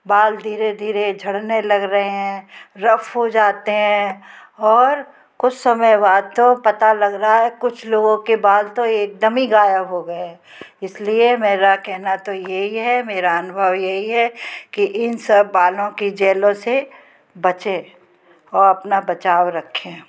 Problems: constant background noise